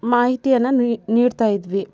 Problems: background sounds at intervals